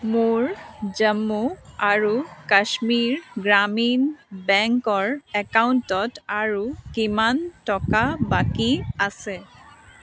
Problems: constant background noise, background conversations at intervals